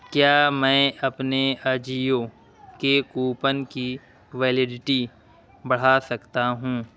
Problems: constant background noise